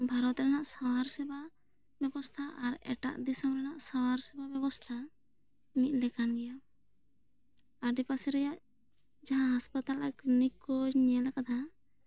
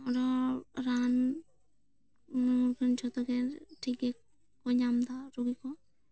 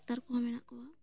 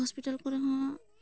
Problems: low volume